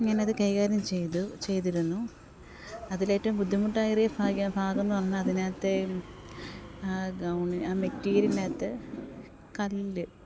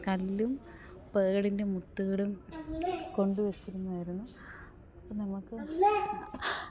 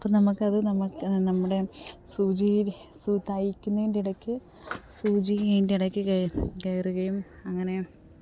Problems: background sounds at intervals, background conversations at intervals, low volume